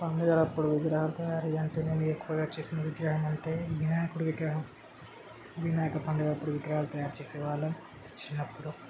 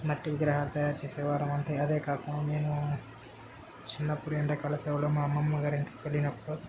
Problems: constant background noise